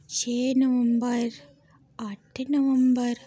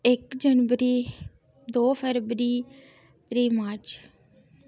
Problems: none marked